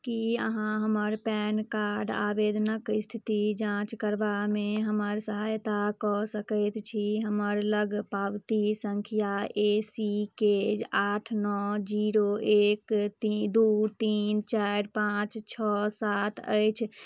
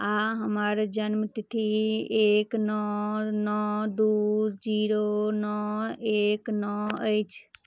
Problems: none marked